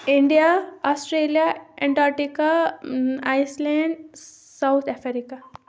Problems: constant background noise